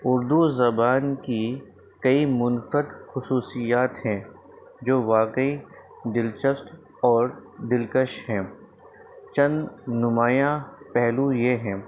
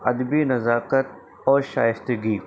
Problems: constant background noise